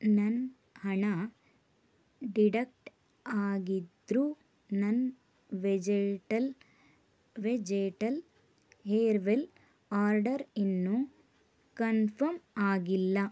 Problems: none marked